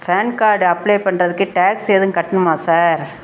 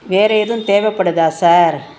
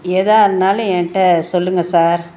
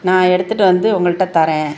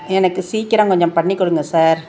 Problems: background sounds at intervals